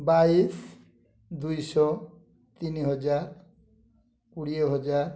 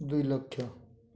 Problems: low volume